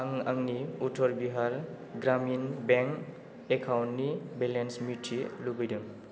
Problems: low volume